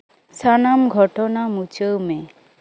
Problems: background sounds at intervals